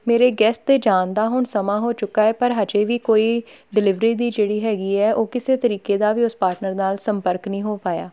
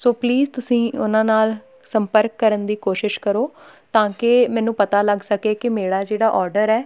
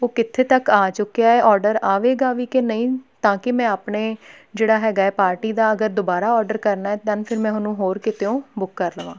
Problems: none marked